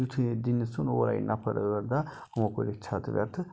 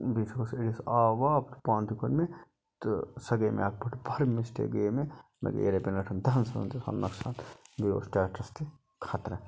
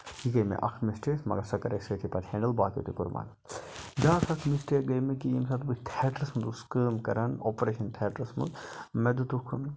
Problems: background sounds at intervals